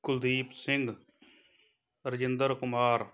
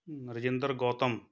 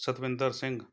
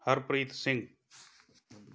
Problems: none marked